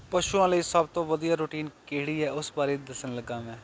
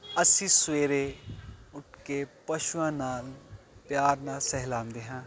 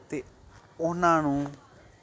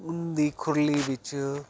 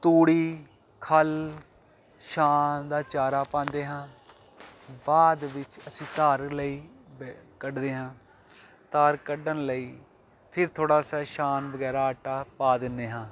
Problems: none marked